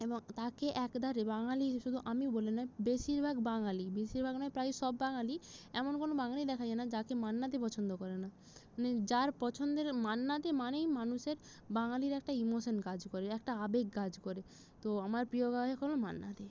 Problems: none marked